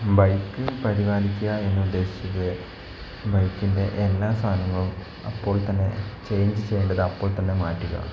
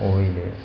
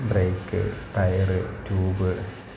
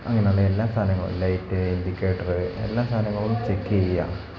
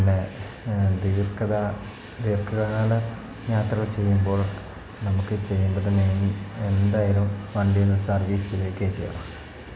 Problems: background sounds at intervals, low volume